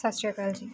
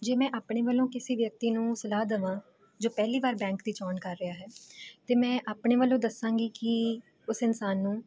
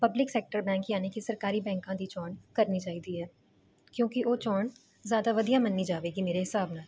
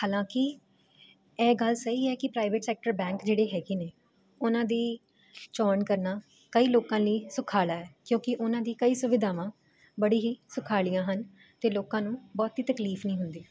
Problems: constant background noise